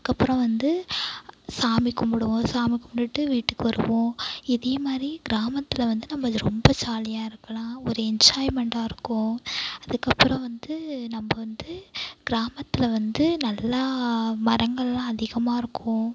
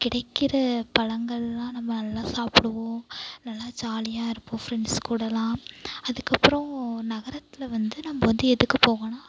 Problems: none marked